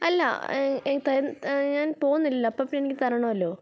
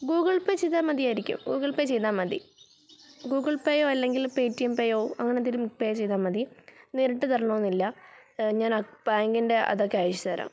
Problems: background sounds at intervals